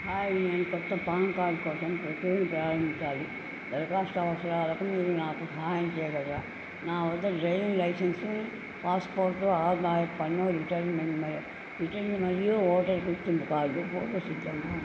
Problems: constant background noise, low volume